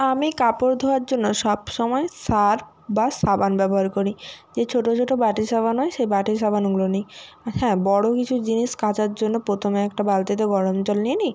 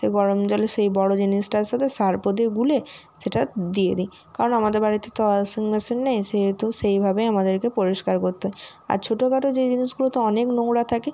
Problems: none marked